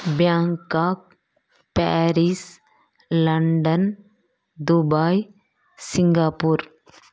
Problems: background sounds at intervals